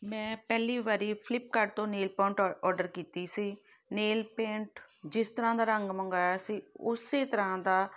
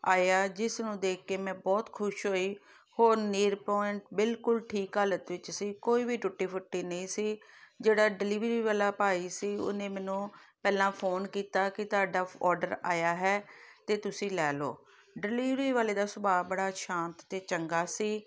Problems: background sounds at intervals